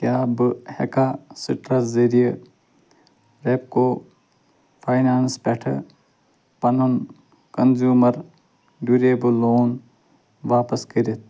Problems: constant background noise